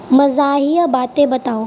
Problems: none marked